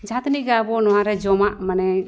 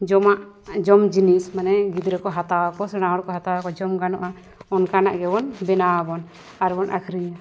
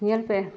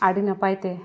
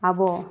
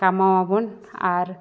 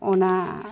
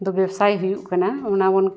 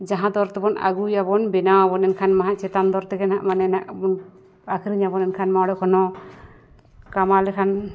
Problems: background conversations at intervals